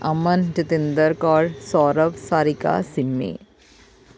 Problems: constant background noise